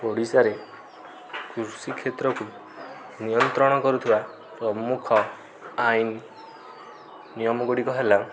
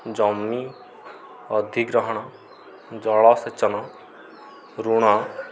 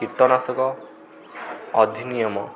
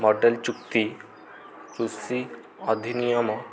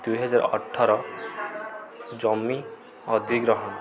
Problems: constant background noise